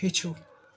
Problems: background sounds at intervals